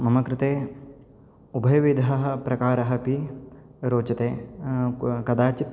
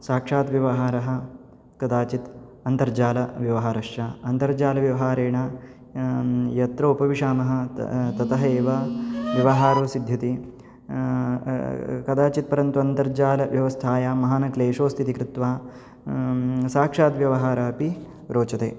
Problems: background sounds at intervals